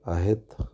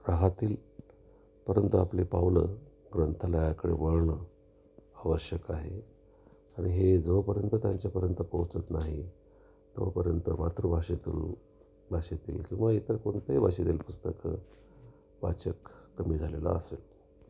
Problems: constant background noise, continuous background conversations